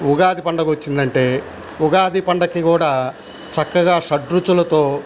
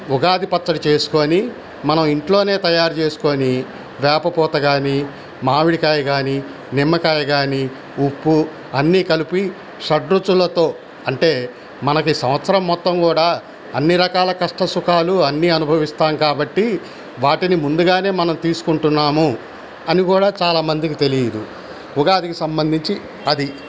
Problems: constant background noise